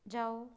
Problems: none marked